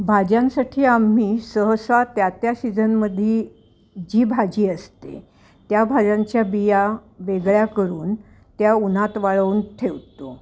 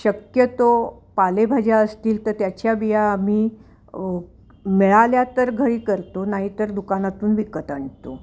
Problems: none marked